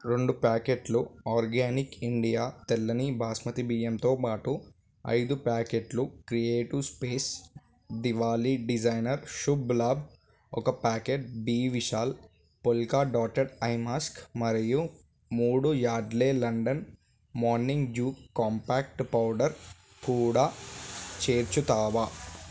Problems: none marked